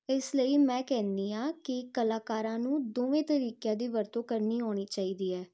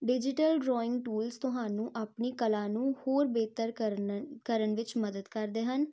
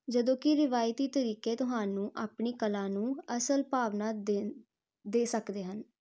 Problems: constant background noise